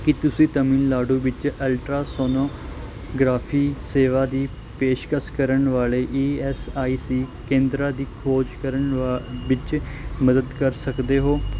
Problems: none marked